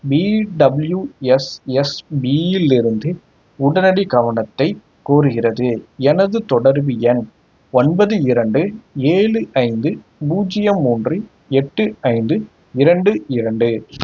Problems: background sounds at intervals